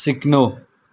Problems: none marked